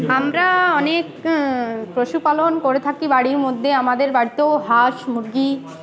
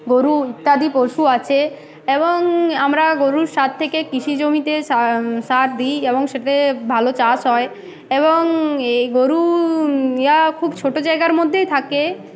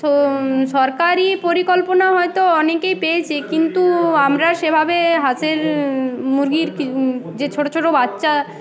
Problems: none marked